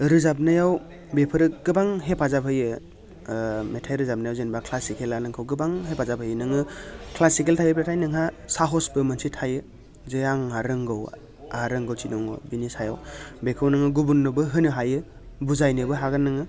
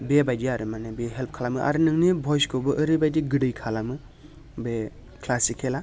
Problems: constant background noise